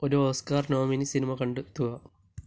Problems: none marked